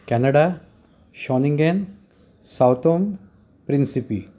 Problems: constant background noise